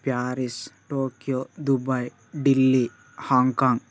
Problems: none marked